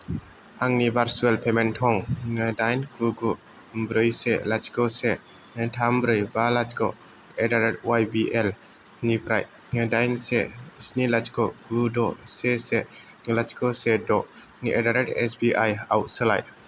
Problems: none marked